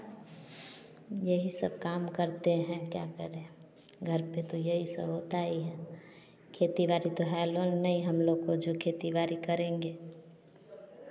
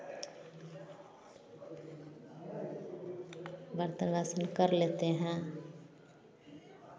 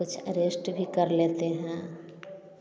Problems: none marked